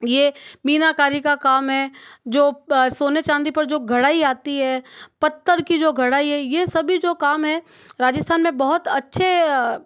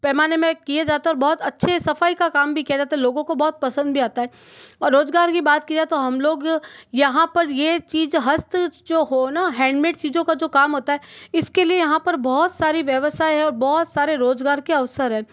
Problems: background sounds at intervals